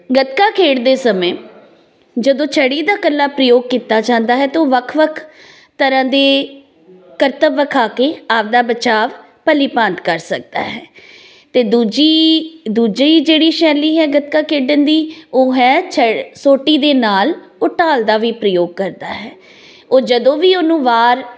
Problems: constant background noise